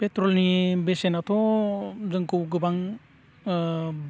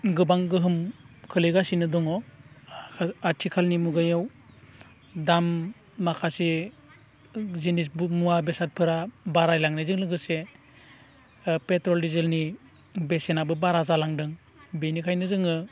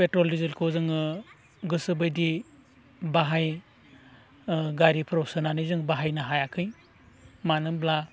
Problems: none marked